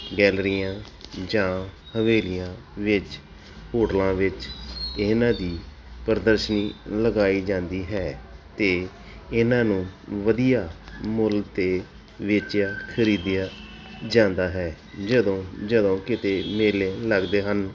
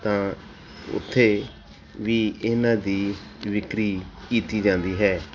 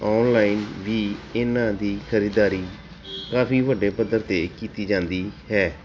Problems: none marked